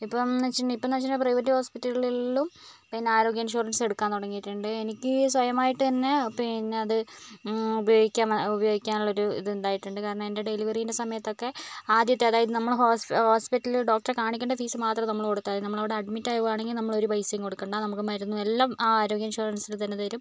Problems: none marked